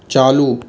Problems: constant background noise